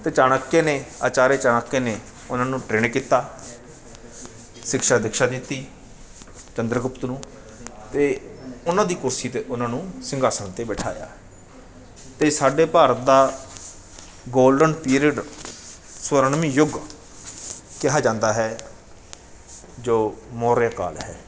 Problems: none marked